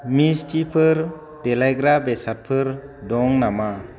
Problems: none marked